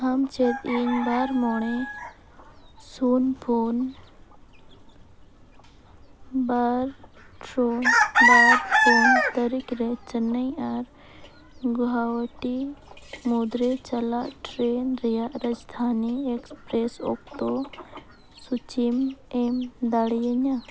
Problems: constant background noise